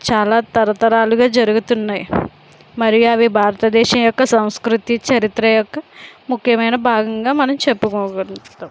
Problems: constant background noise